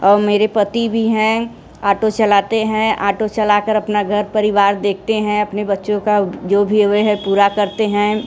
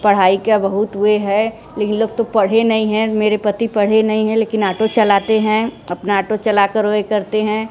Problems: background sounds at intervals